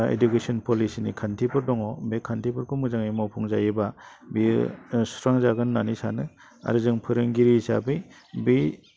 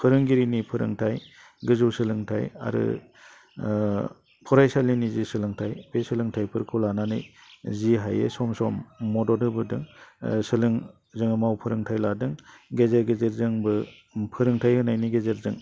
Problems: low volume